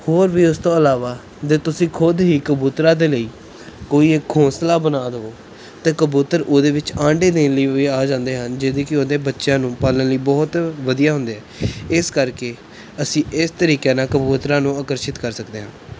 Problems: none marked